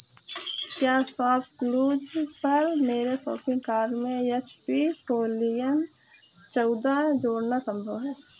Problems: constant background noise